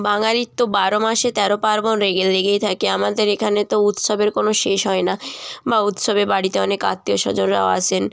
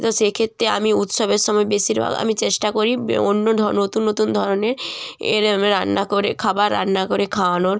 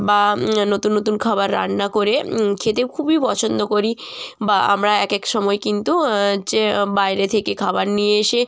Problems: none marked